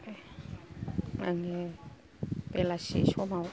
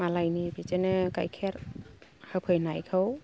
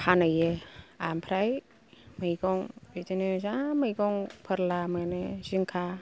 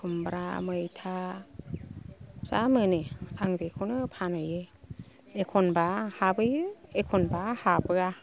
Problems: low volume